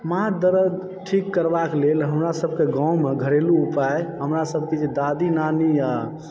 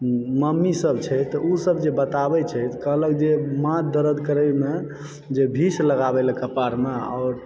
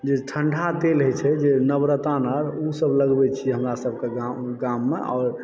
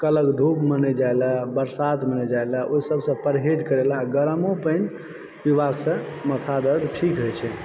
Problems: background sounds at intervals